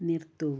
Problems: low volume